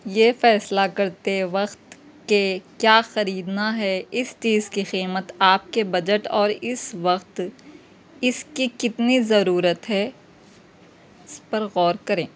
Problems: none marked